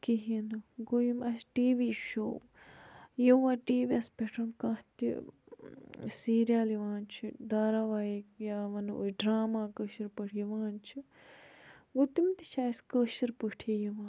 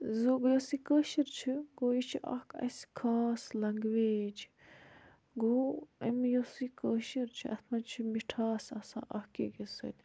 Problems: background sounds at intervals